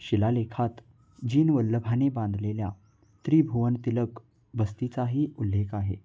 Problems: constant background noise